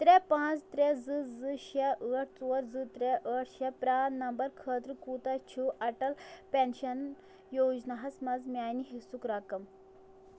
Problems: background sounds at intervals